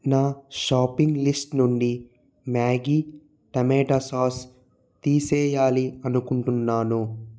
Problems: none marked